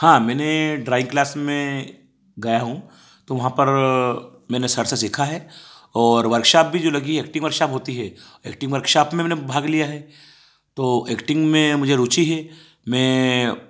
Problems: background sounds at intervals